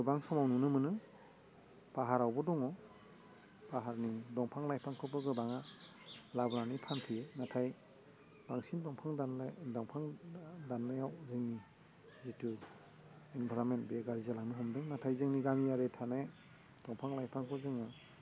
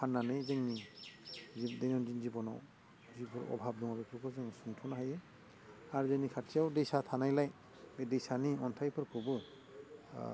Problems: constant background noise